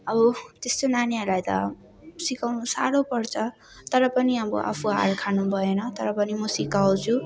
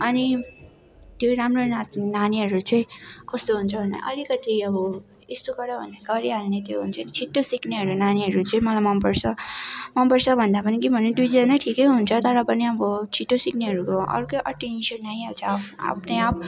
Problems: none marked